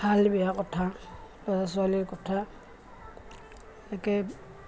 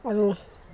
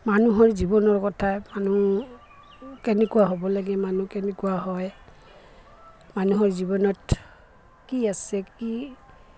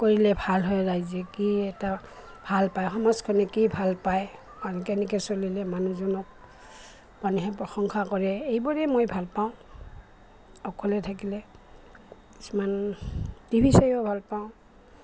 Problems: constant background noise